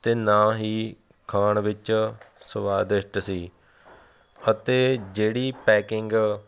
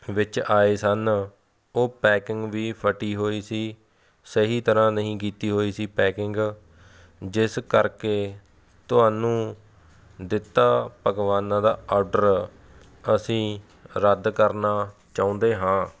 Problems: background sounds at intervals